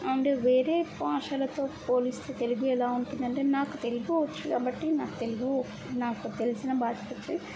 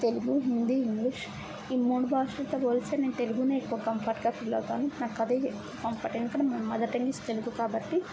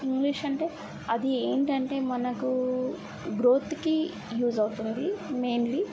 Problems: none marked